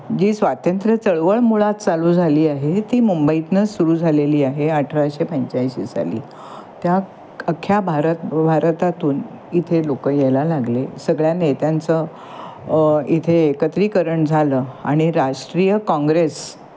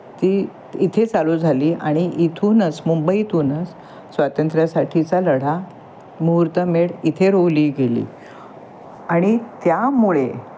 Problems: constant background noise